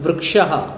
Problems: constant background noise